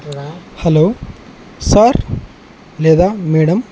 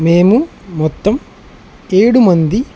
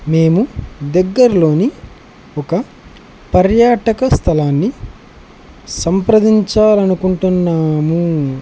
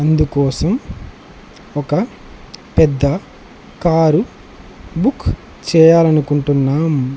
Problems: constant background noise